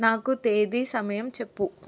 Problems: none marked